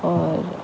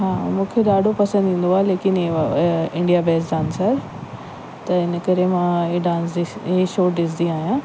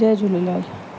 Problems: constant background noise